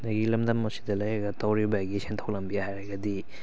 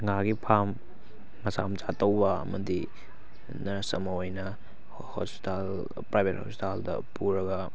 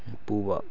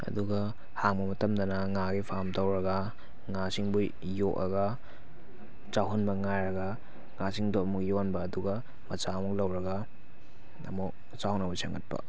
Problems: background conversations at intervals